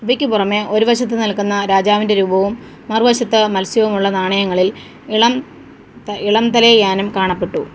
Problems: background sounds at intervals